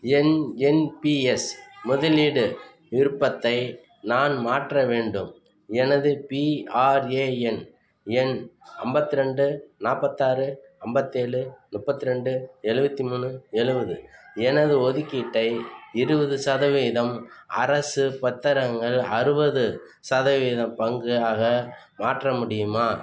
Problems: background sounds at intervals, background conversations at intervals